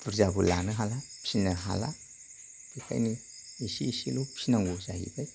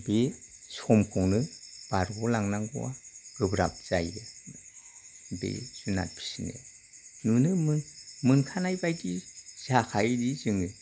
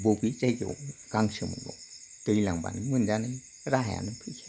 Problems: low volume